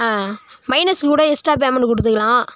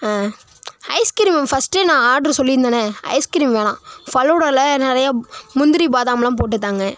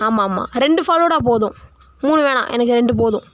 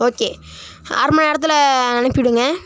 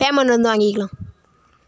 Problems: background sounds at intervals